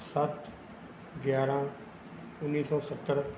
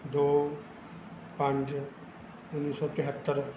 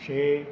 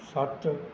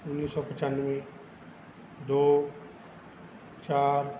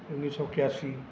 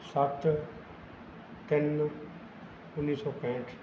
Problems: none marked